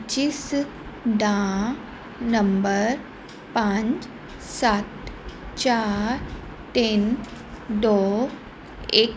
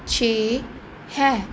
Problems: none marked